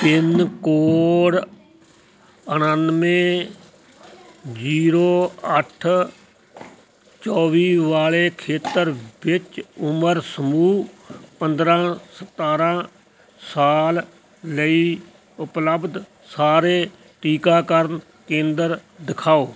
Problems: none marked